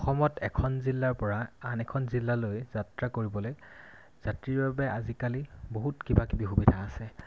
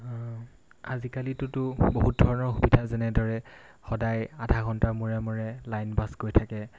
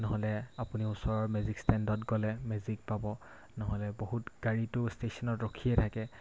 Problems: constant background noise